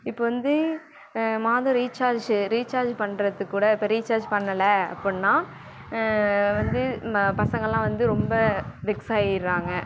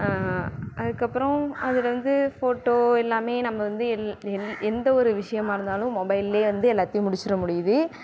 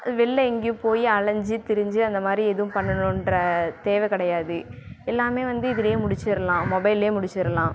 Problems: background sounds at intervals